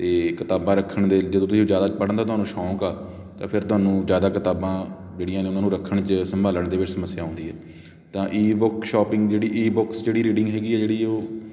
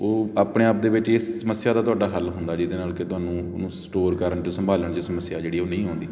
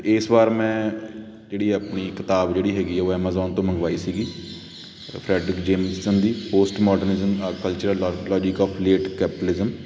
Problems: constant background noise